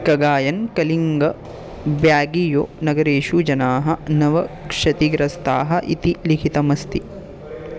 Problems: constant background noise